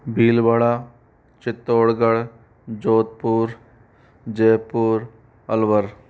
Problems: constant background noise